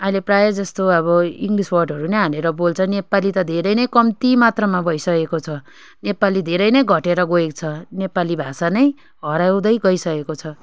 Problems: constant background noise